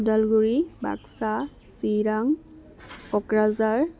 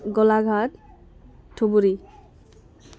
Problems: none marked